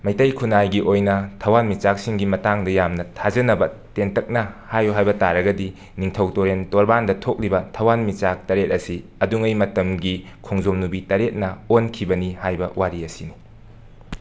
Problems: constant background noise